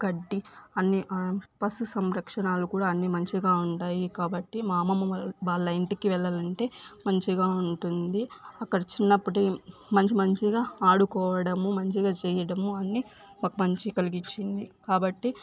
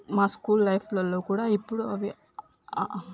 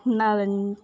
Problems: background sounds at intervals